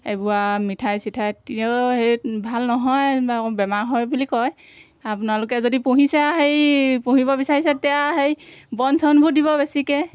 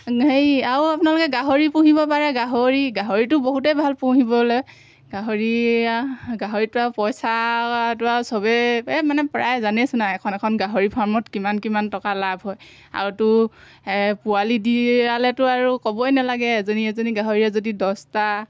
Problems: background sounds at intervals